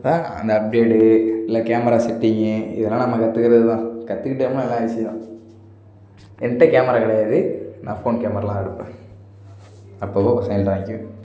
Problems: background sounds at intervals